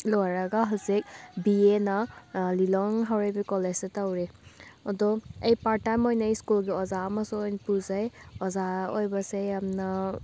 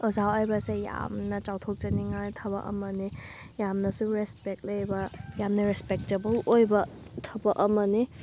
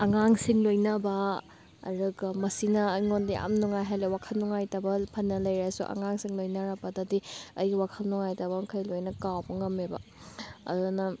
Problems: background sounds at intervals, background conversations at intervals